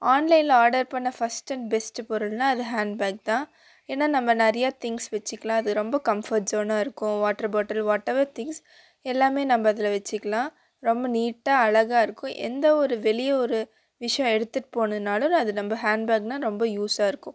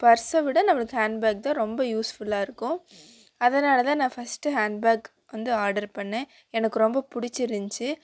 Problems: constant background noise